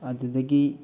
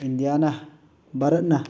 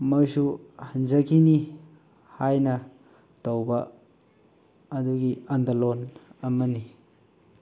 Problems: constant background noise